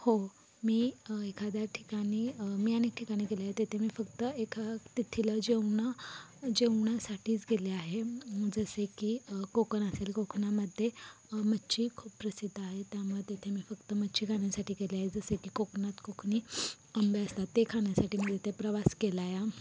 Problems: none marked